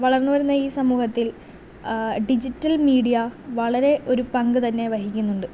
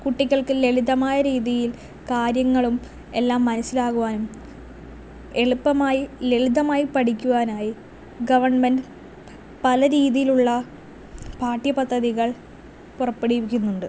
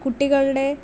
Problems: none marked